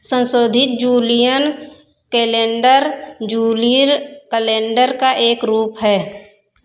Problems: echo